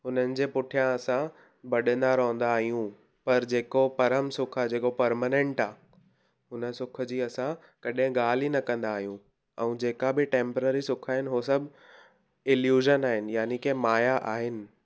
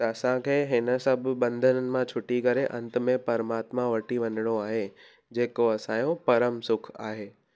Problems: none marked